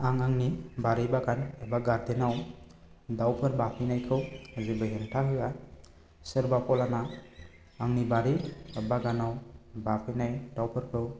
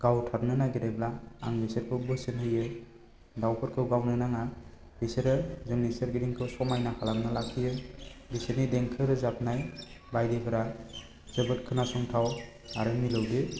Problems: low volume